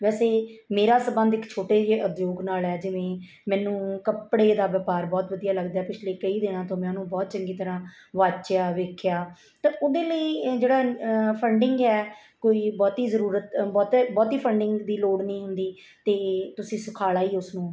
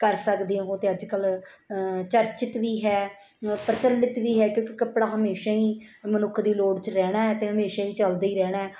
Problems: background sounds at intervals